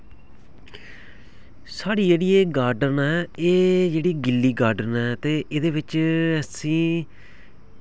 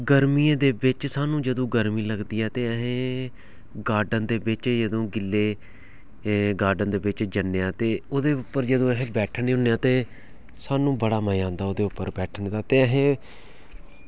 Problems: background sounds at intervals